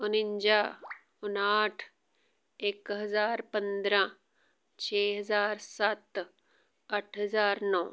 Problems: background sounds at intervals